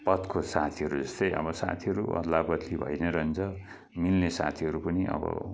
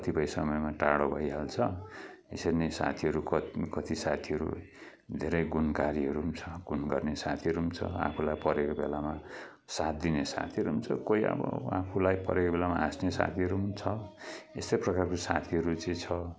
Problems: background conversations at intervals